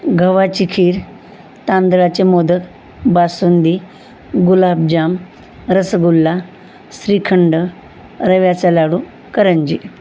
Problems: none marked